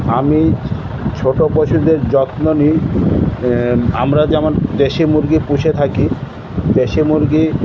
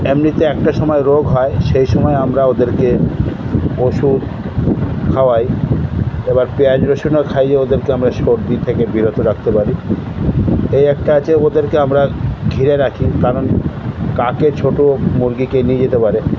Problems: constant background noise